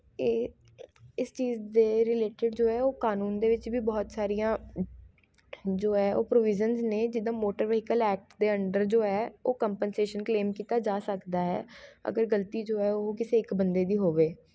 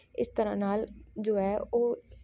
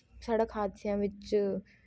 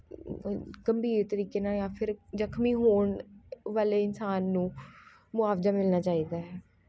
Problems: background sounds at intervals, continuous background conversations